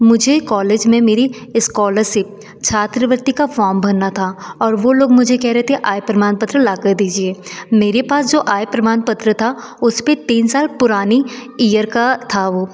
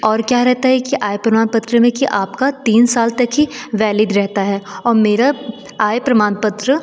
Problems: none marked